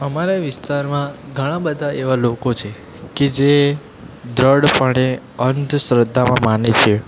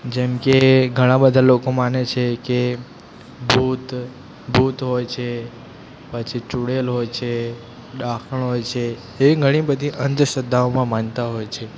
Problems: constant background noise